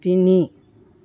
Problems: none marked